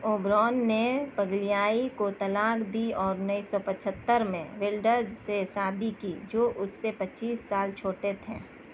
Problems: none marked